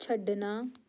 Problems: none marked